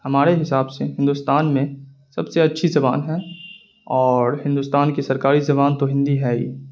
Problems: constant background noise